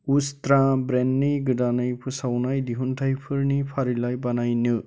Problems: constant background noise